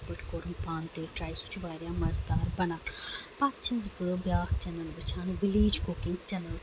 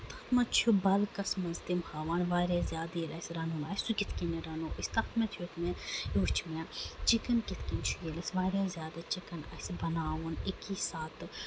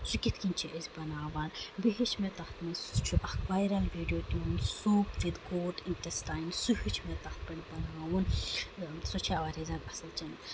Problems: constant background noise